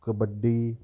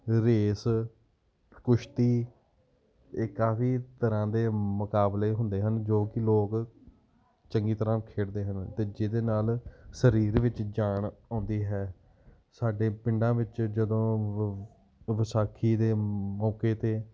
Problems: background sounds at intervals